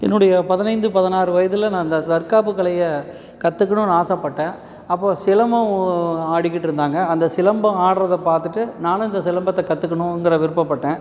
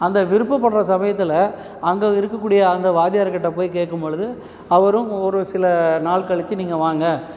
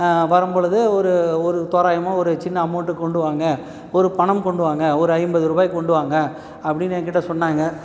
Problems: none marked